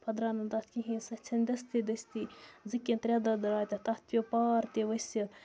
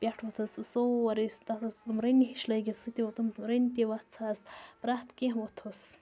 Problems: constant background noise, background conversations at intervals